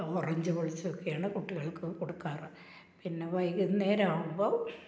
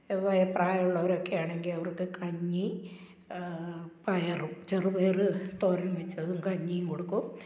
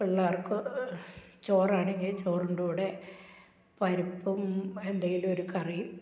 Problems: none marked